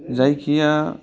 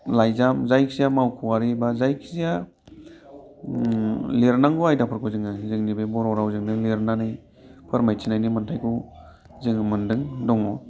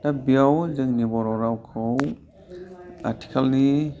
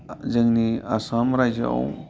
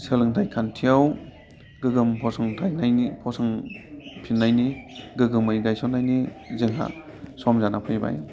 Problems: constant background noise